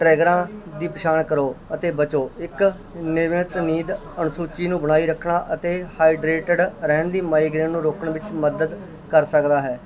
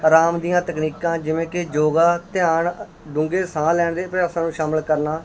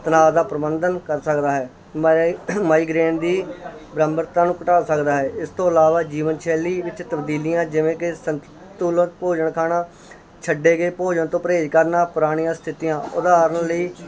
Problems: constant background noise, continuous background conversations